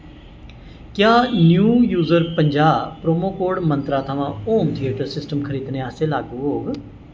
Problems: constant background noise